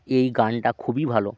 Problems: constant background noise